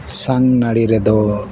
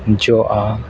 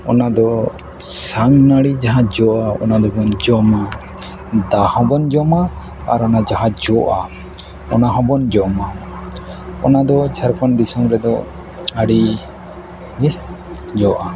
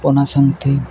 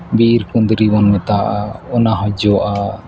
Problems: background sounds at intervals, low volume